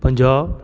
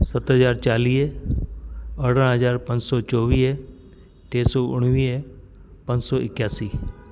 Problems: constant background noise